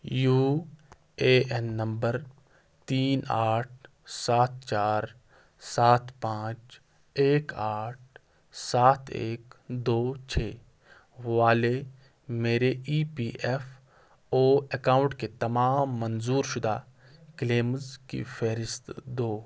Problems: constant background noise